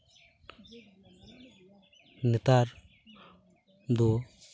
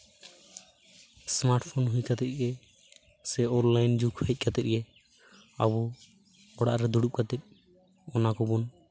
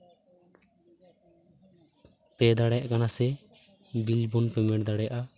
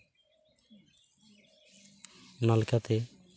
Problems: background sounds at intervals